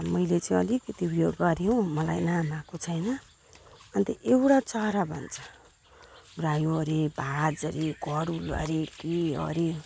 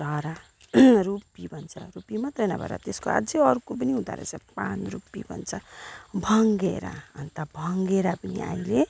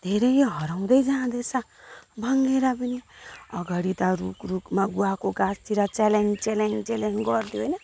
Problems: background sounds at intervals